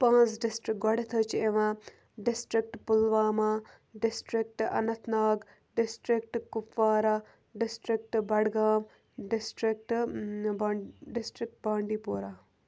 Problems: none marked